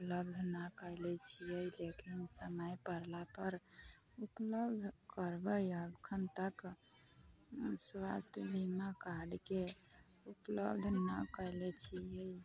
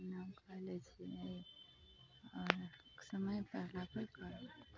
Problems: constant background noise, background conversations at intervals